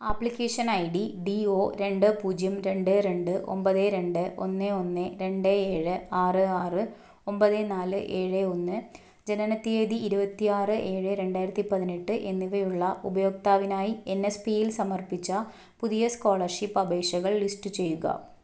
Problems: none marked